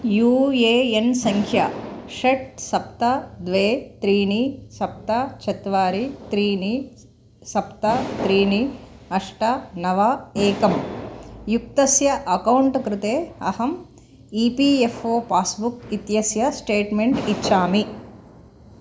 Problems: constant background noise